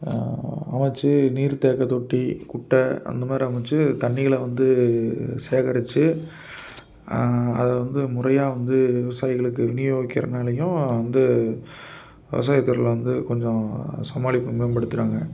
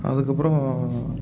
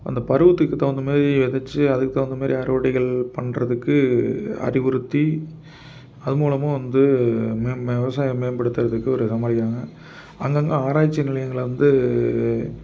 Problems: background sounds at intervals